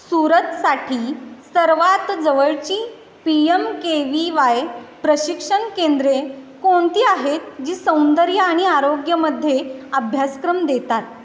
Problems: constant background noise